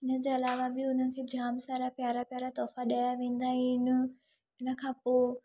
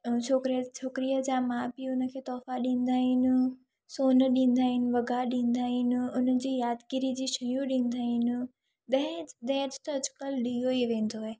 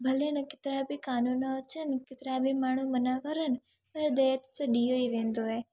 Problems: none marked